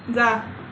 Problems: constant background noise